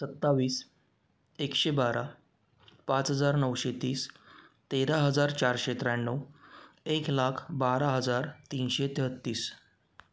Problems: none marked